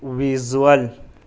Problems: none marked